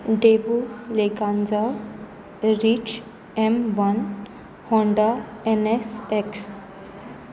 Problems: none marked